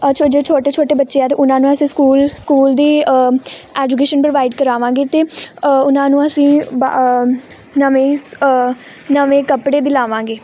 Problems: none marked